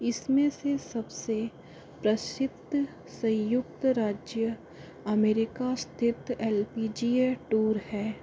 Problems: low volume